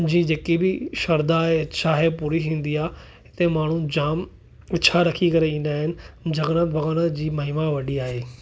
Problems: none marked